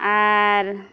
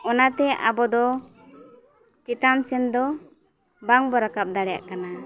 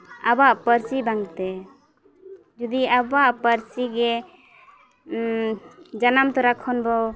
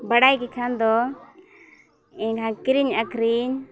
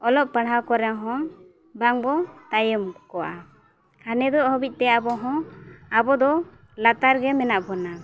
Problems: constant background noise, background conversations at intervals